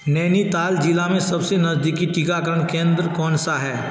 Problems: constant background noise